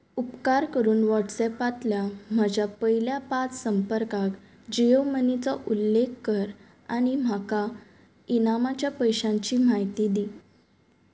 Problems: none marked